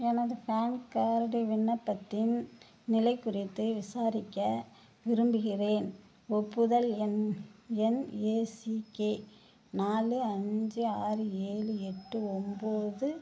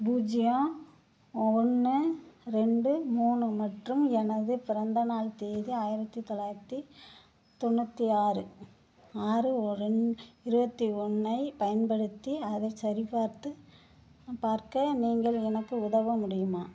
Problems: background sounds at intervals